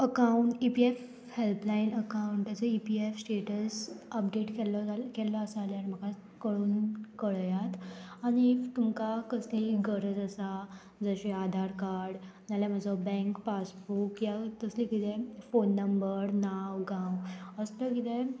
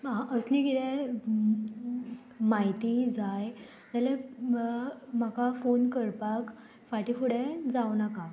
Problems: constant background noise